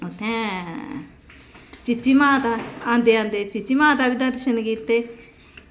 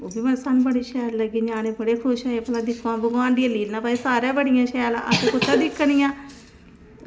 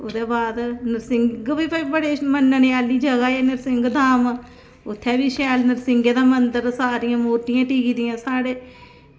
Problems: constant background noise